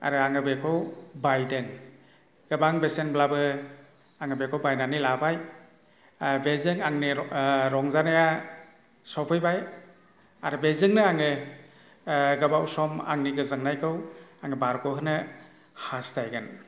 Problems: constant background noise